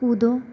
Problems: constant background noise